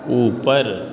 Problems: none marked